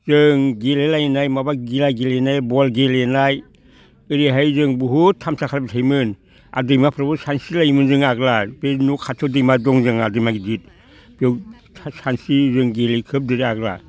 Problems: none marked